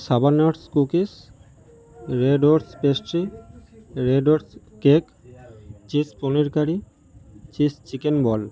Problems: constant background noise